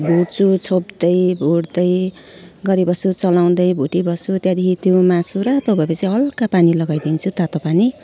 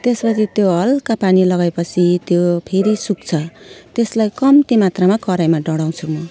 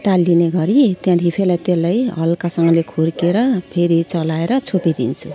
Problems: background sounds at intervals